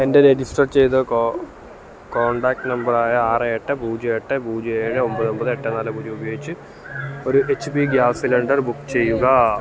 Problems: constant background noise